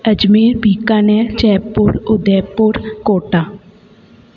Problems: constant background noise, echo